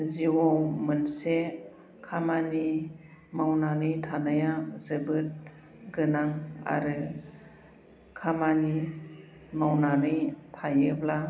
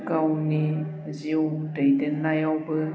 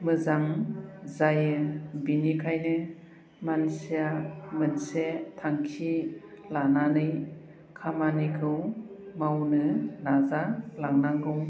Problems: low volume